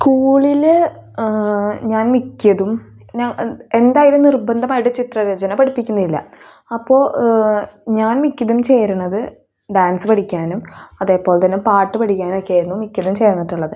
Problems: none marked